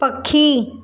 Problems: none marked